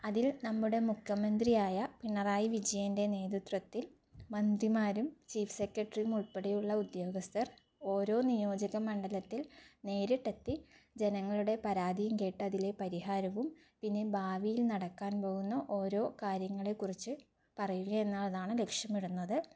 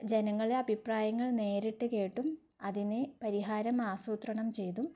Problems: low volume